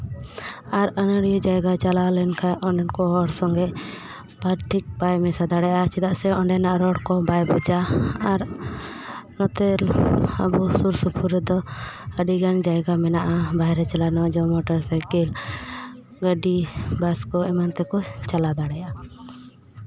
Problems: constant background noise, background conversations at intervals